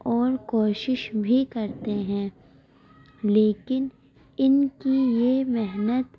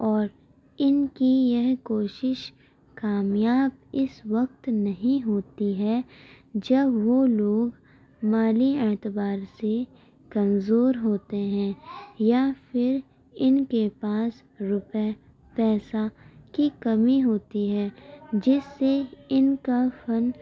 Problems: background sounds at intervals